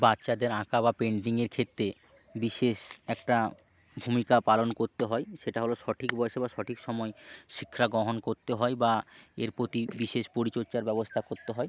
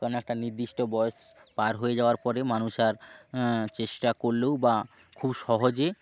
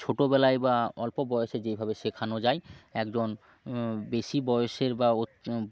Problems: background sounds at intervals